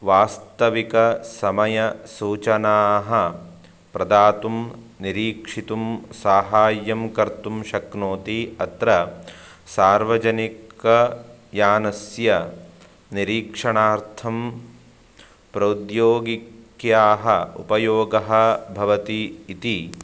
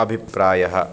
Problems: background sounds at intervals